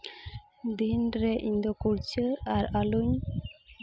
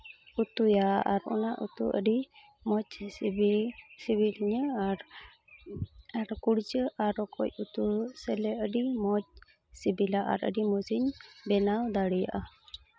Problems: background sounds at intervals